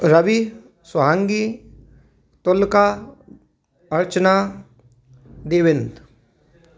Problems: background sounds at intervals, background conversations at intervals